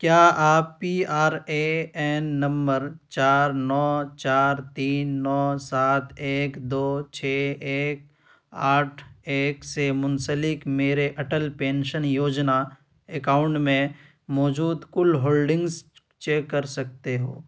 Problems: none marked